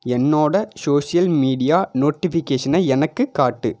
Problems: none marked